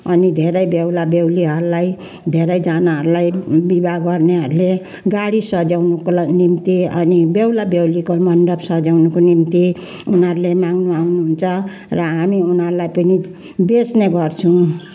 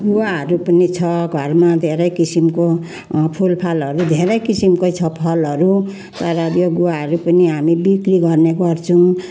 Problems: background sounds at intervals, background conversations at intervals